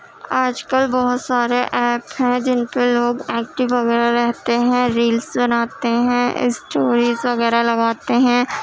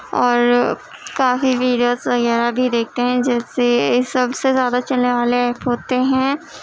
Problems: constant background noise